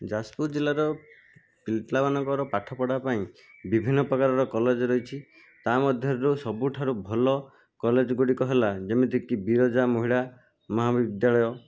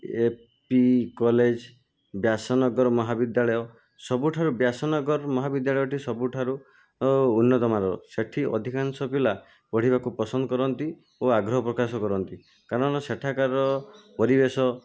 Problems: background sounds at intervals